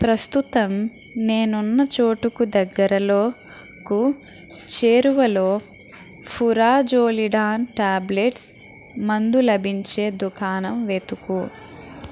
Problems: constant background noise, background conversations at intervals